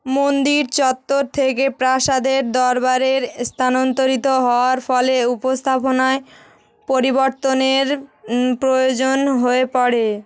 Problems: background sounds at intervals